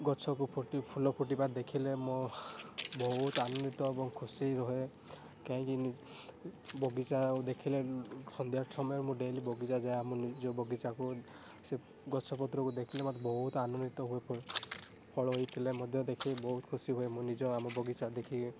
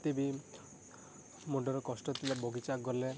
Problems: constant background noise